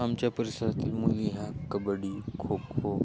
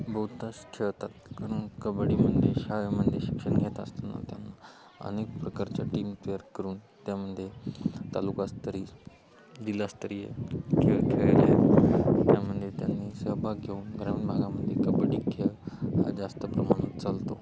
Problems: none marked